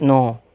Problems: none marked